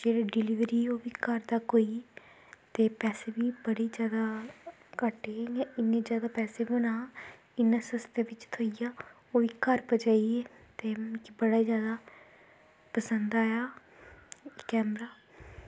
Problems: constant background noise, low volume